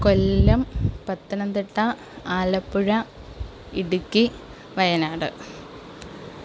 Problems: none marked